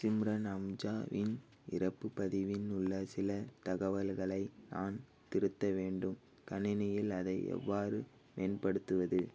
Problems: background sounds at intervals